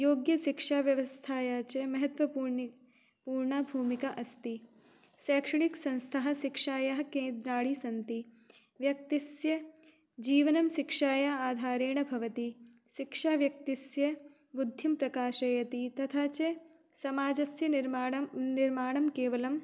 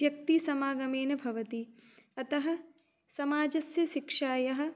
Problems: none marked